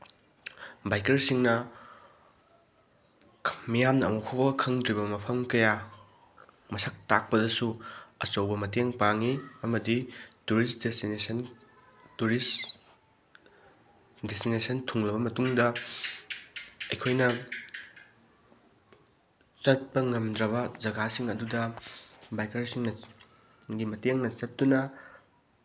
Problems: none marked